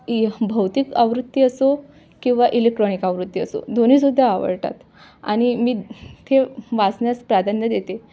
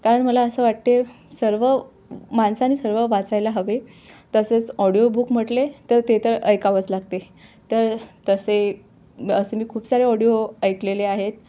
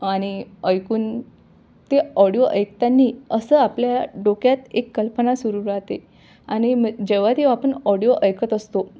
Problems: none marked